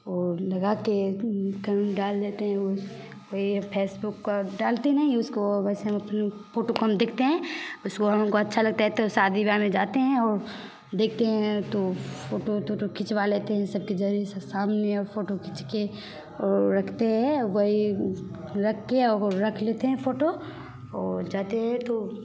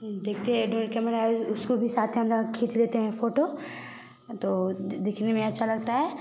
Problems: background sounds at intervals